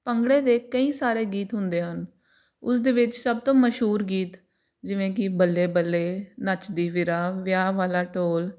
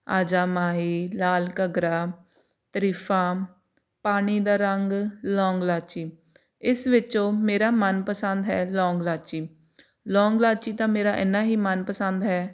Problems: background sounds at intervals